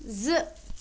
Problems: none marked